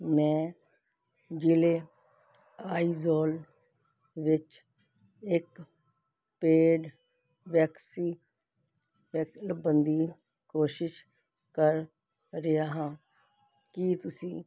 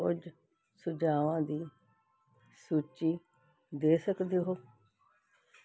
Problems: background sounds at intervals